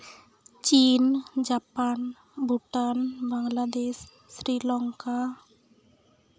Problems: background sounds at intervals